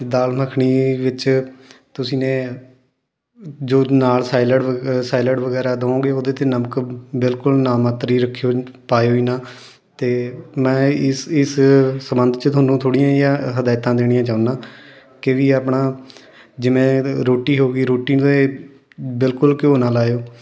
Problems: background sounds at intervals, continuous background conversations